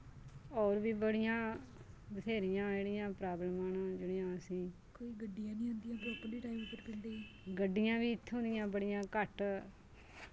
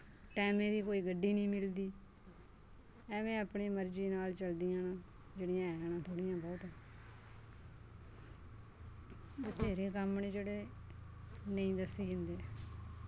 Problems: low volume